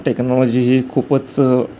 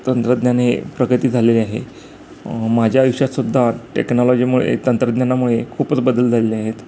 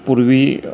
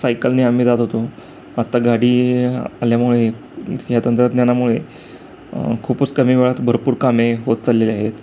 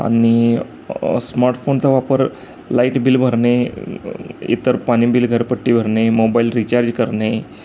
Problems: constant background noise